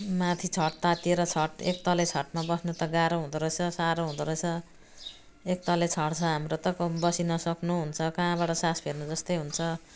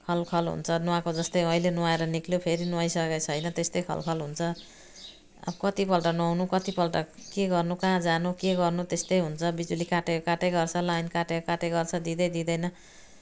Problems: none marked